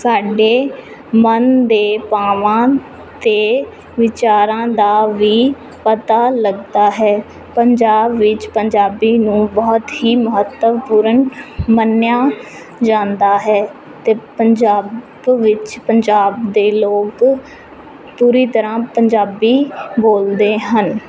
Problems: none marked